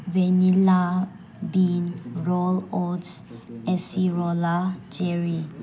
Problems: background sounds at intervals